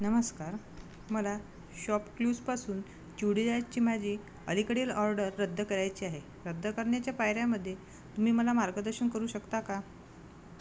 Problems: background sounds at intervals